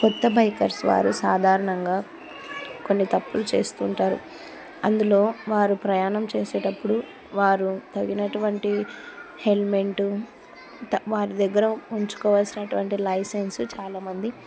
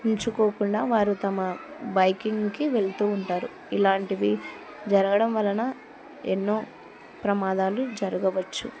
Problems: continuous background conversations